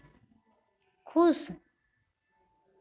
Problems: constant background noise